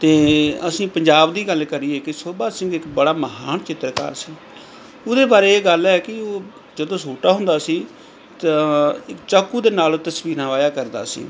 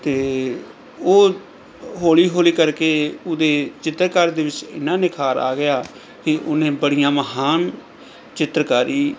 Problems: background sounds at intervals